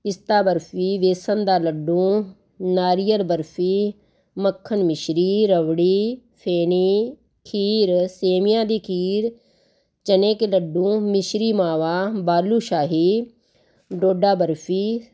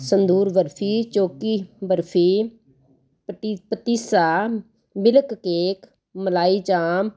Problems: constant background noise